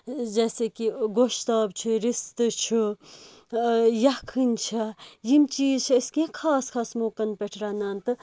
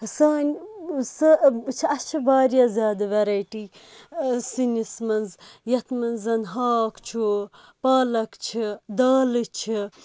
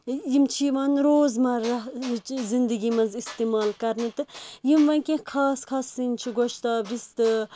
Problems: background sounds at intervals